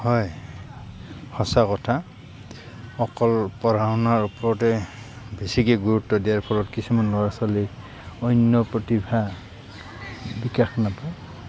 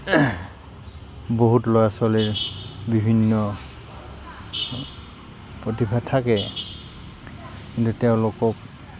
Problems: constant background noise, background conversations at intervals